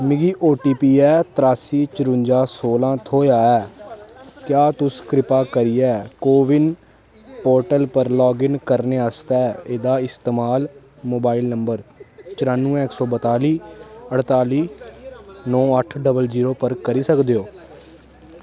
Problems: constant background noise